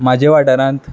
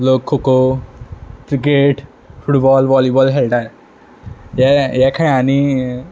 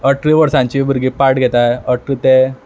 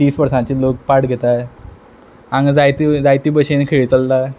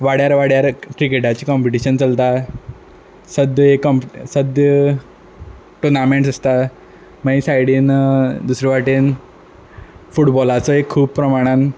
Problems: constant background noise